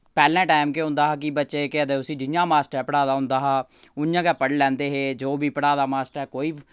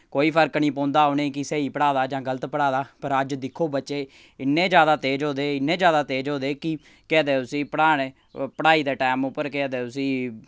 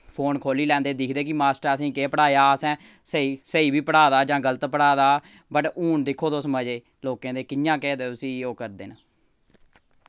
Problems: none marked